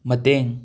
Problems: none marked